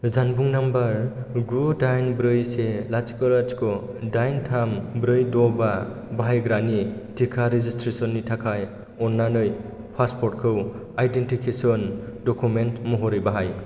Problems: constant background noise